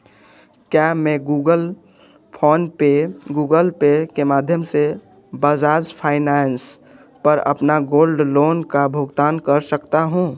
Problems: background sounds at intervals